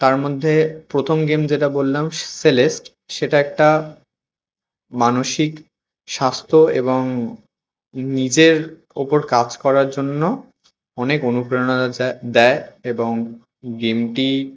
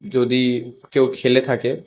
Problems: constant background noise